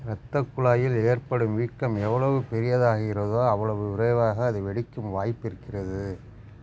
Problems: constant background noise